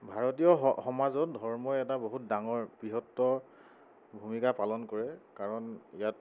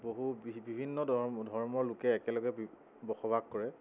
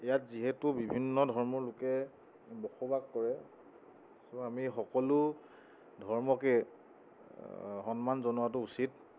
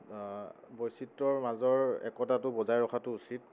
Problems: constant background noise